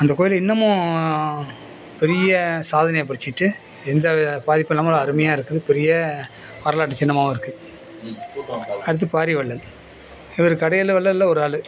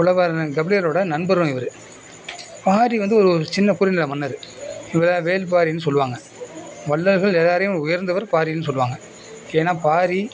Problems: constant background noise, background conversations at intervals